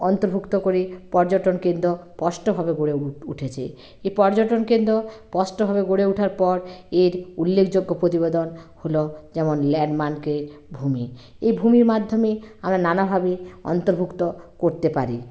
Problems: constant background noise